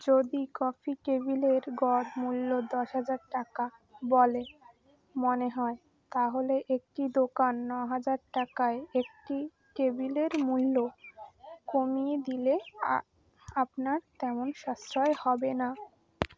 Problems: background sounds at intervals, background conversations at intervals